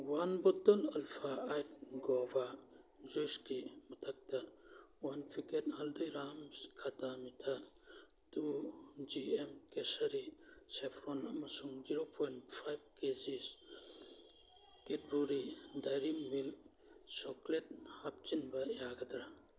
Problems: background sounds at intervals, background conversations at intervals